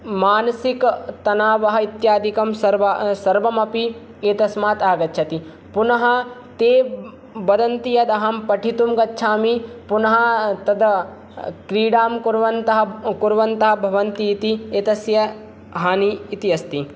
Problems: none marked